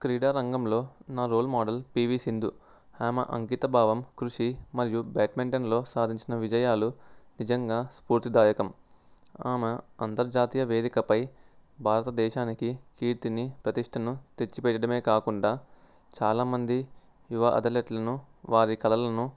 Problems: background sounds at intervals